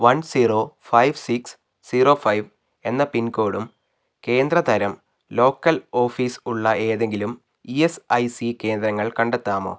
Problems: none marked